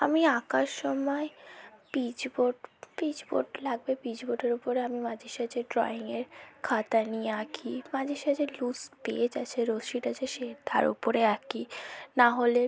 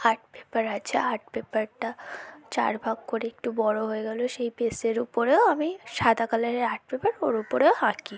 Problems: background conversations at intervals, low volume